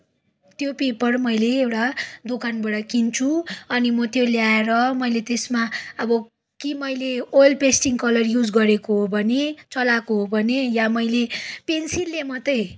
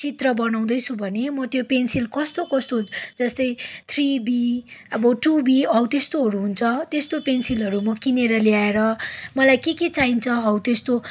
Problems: background sounds at intervals